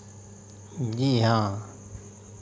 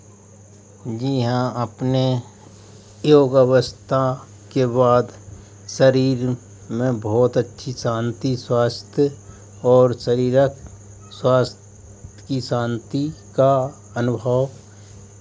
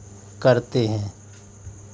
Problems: constant background noise